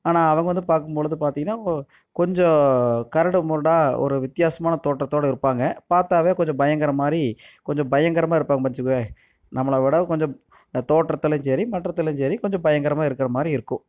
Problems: none marked